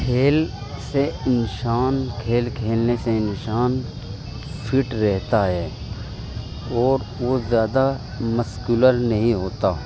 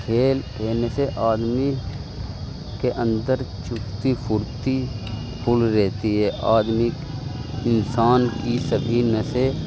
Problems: constant background noise